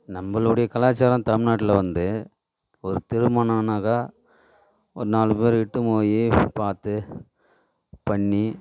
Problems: background sounds at intervals